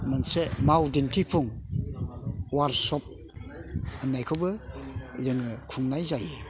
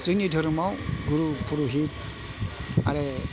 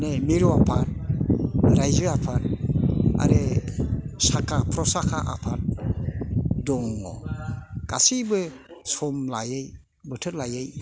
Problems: constant background noise